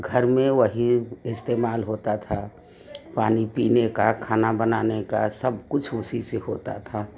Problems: background sounds at intervals, background conversations at intervals